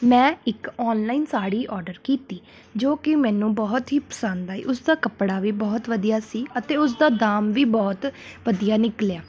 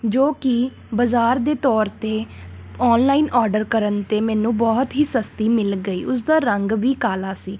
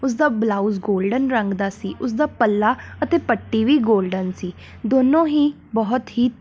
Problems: constant background noise